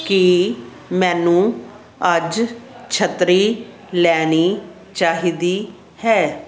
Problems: constant background noise